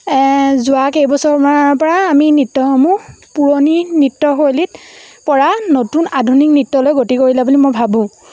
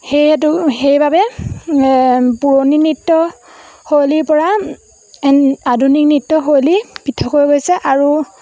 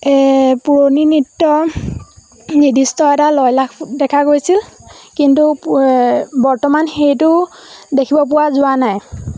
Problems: background sounds at intervals